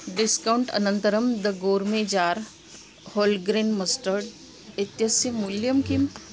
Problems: constant background noise